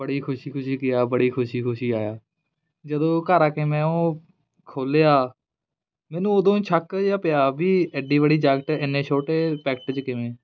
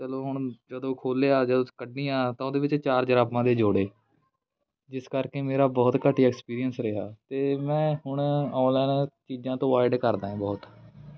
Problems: background conversations at intervals